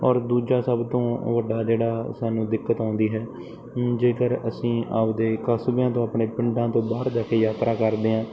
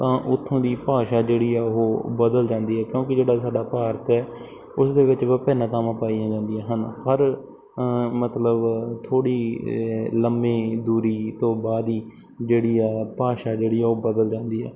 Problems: none marked